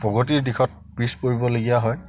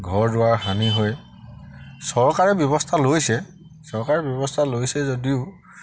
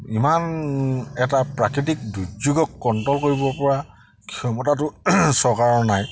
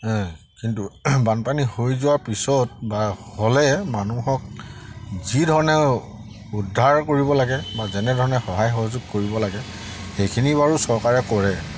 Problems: constant background noise